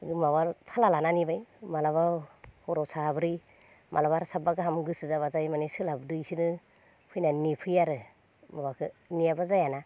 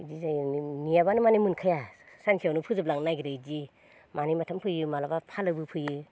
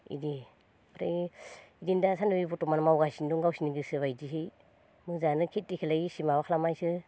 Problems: none marked